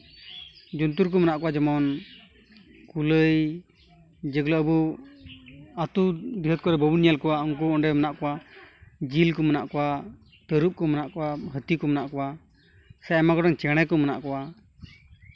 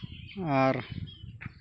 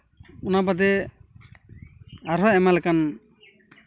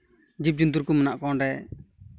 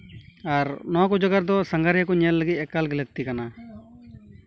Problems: background conversations at intervals